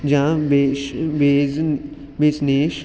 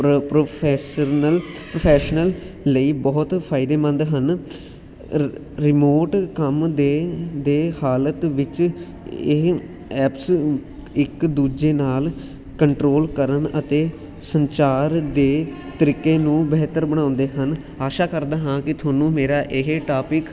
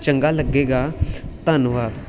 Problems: constant background noise